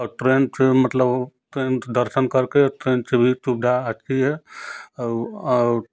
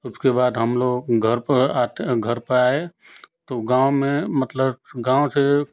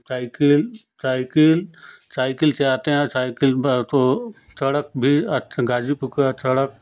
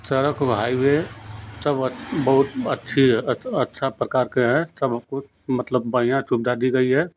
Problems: constant background noise